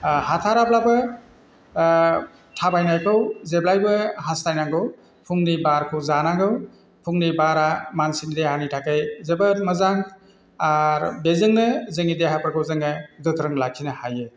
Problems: constant background noise